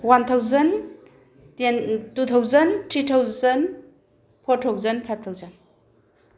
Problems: background sounds at intervals